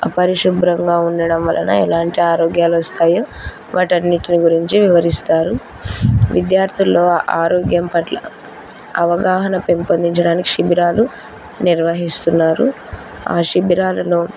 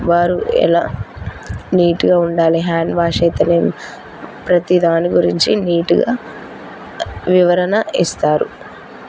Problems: constant background noise